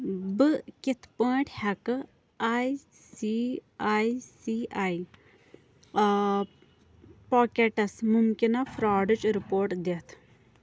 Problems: background sounds at intervals